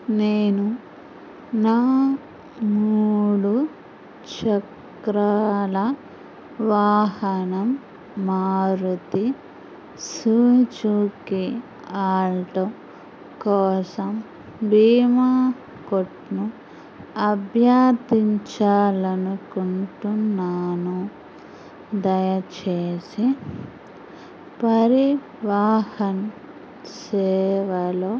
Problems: constant background noise